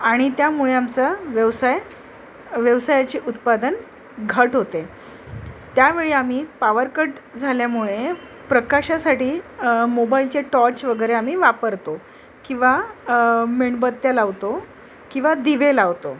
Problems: constant background noise, background conversations at intervals